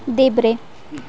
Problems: background conversations at intervals